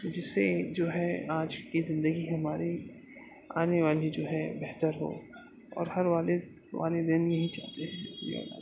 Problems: constant background noise, low volume